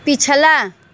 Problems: none marked